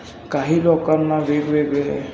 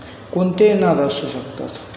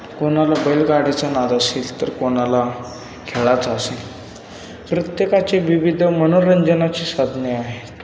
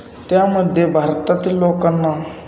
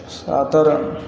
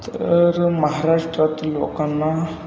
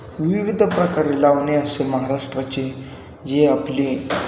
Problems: constant background noise